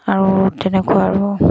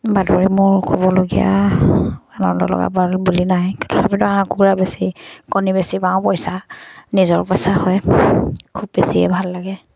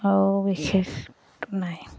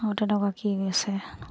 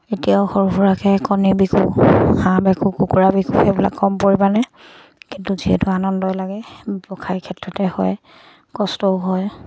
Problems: none marked